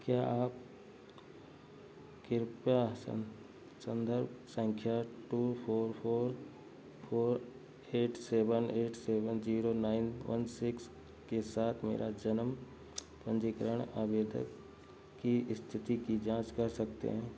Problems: background sounds at intervals